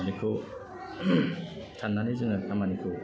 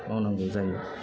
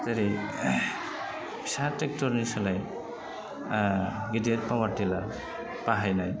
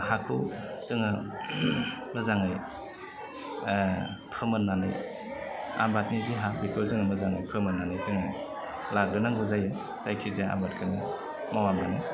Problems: low volume